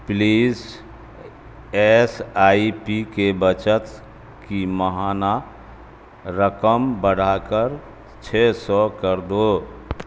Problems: constant background noise